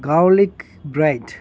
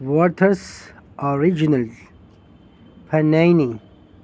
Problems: constant background noise